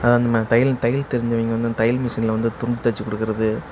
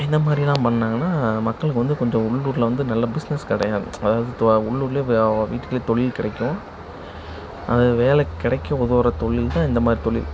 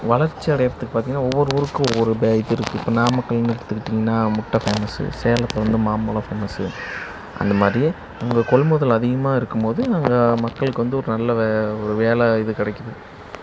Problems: background sounds at intervals, background conversations at intervals